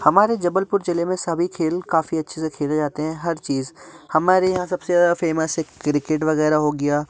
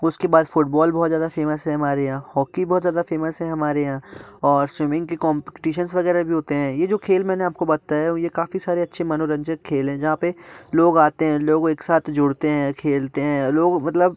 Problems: none marked